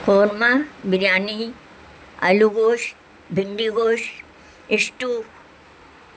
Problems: constant background noise